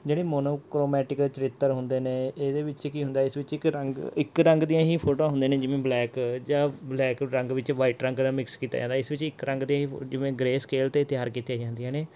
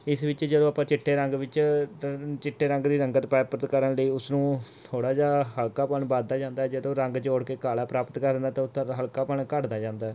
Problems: none marked